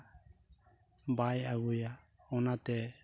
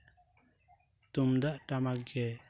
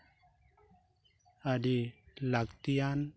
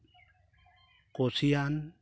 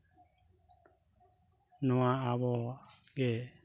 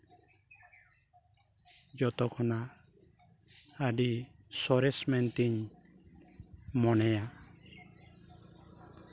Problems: background sounds at intervals